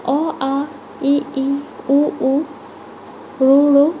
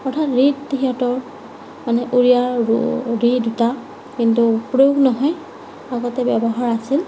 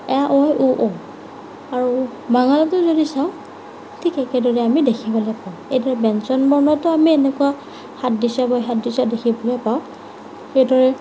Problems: none marked